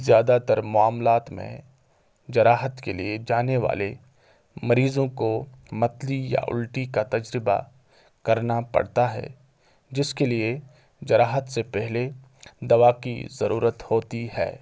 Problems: constant background noise